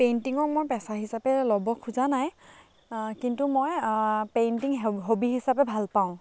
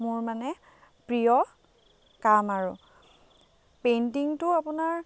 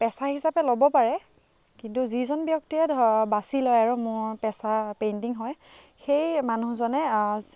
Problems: background sounds at intervals, background conversations at intervals